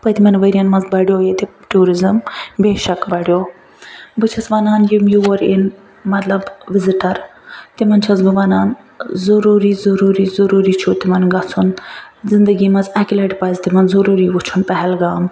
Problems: none marked